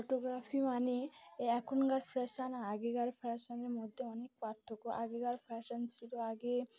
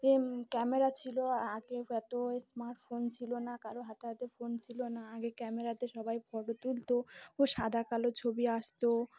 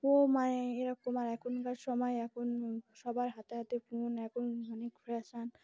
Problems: constant background noise